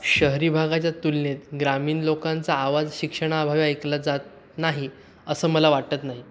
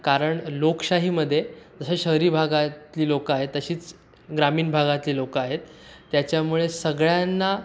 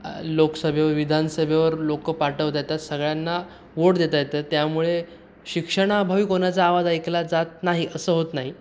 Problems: none marked